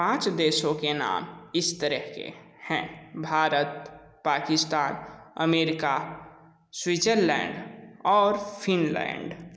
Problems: echo